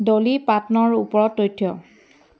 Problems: background sounds at intervals